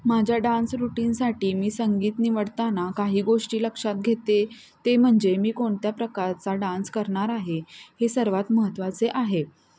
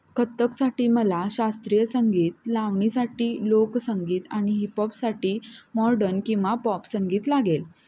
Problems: constant background noise, continuous background conversations